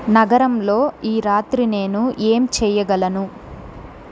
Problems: constant background noise